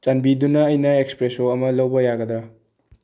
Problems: low volume